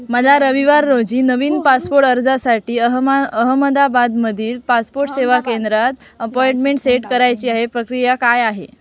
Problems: background sounds at intervals, continuous background conversations